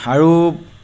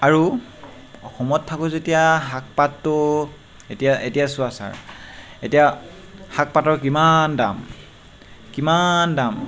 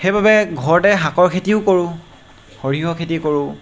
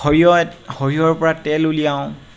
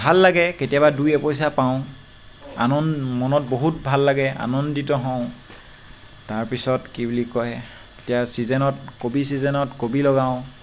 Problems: constant background noise